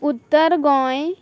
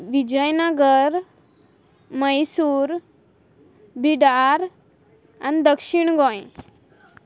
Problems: background sounds at intervals